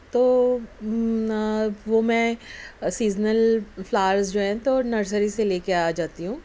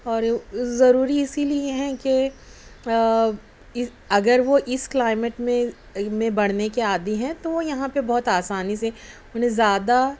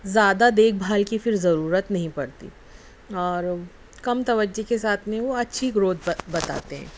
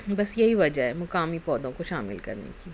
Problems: none marked